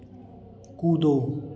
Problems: constant background noise, echo